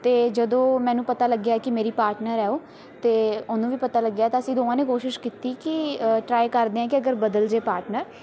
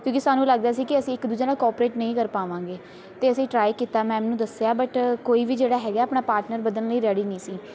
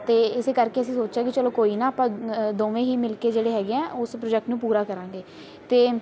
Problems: constant background noise